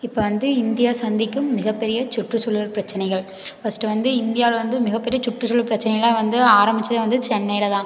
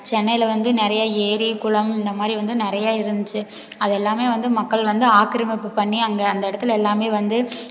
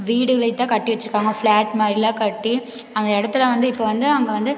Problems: none marked